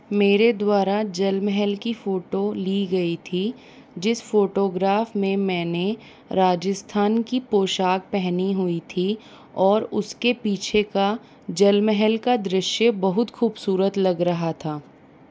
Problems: none marked